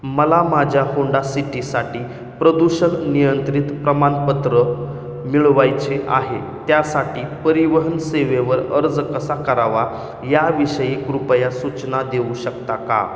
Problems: none marked